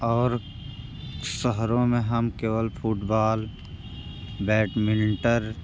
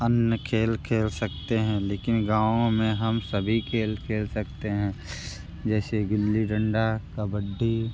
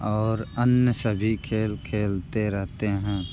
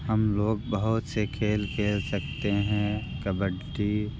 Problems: background sounds at intervals